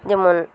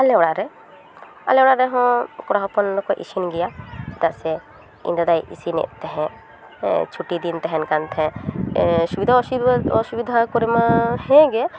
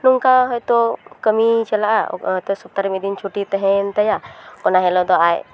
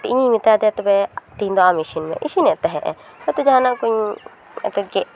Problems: background sounds at intervals, continuous background conversations